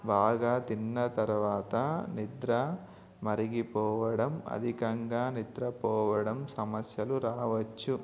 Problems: background sounds at intervals